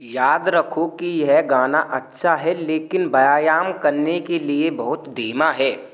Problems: none marked